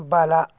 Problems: none marked